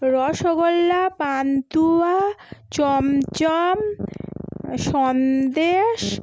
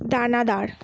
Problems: none marked